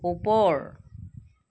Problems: none marked